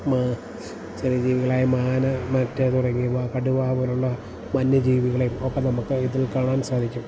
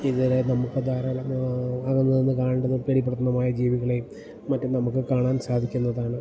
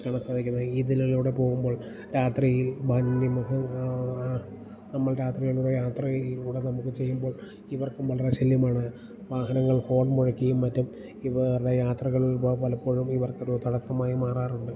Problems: constant background noise, low volume